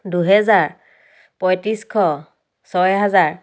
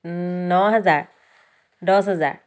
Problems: background sounds at intervals